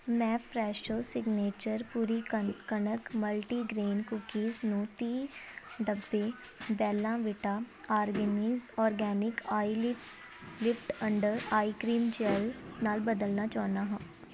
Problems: constant background noise